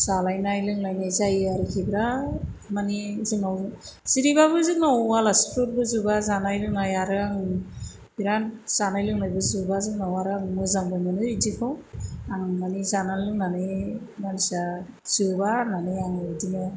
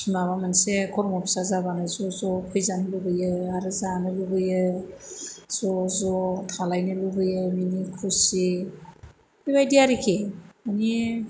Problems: background sounds at intervals